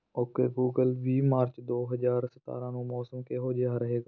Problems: none marked